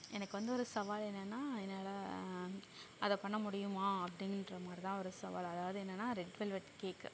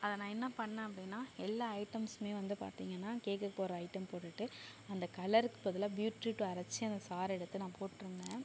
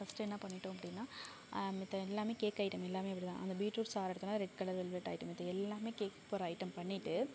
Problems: low volume